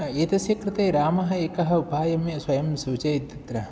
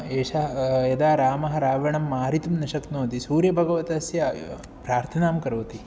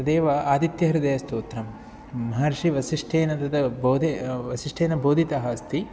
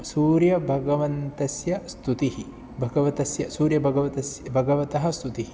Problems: none marked